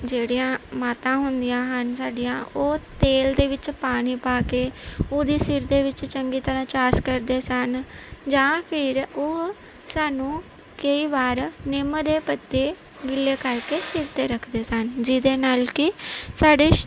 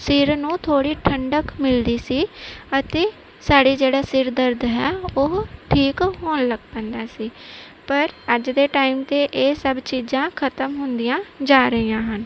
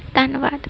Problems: none marked